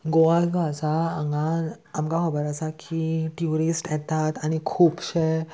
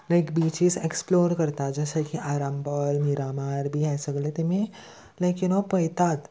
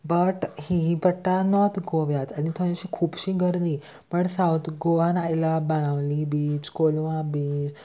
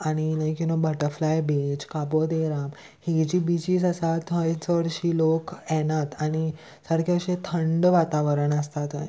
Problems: constant background noise